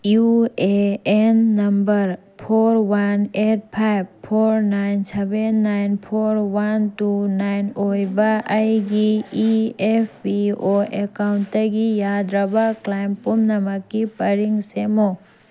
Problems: constant background noise